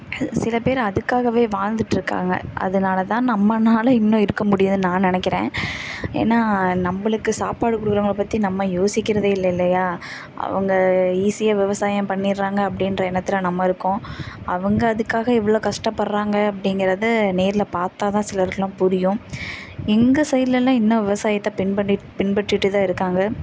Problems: constant background noise